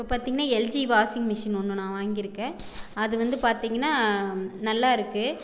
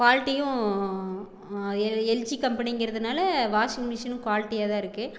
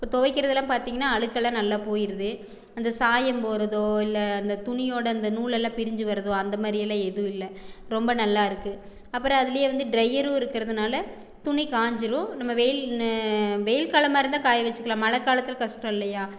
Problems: background conversations at intervals